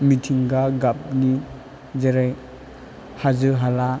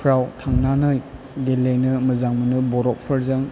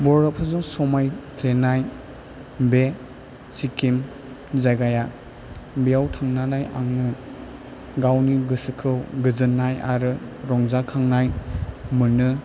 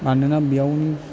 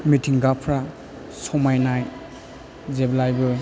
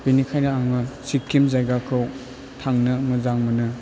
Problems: low volume